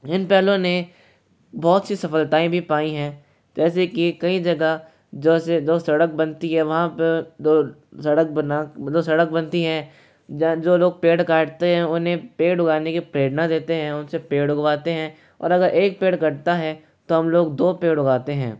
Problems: none marked